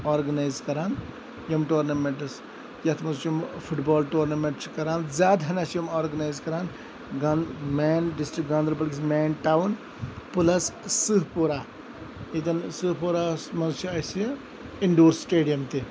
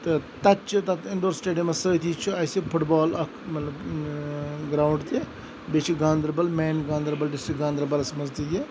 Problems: constant background noise